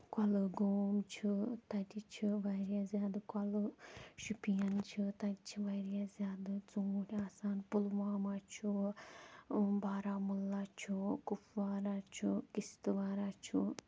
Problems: none marked